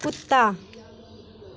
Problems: none marked